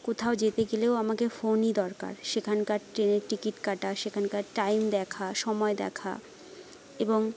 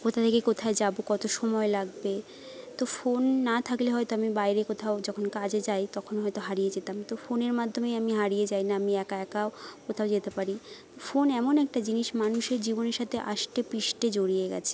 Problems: constant background noise